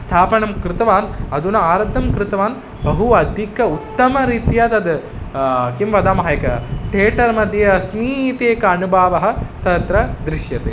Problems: constant background noise